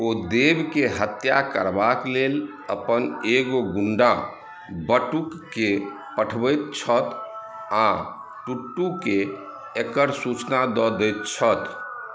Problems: background sounds at intervals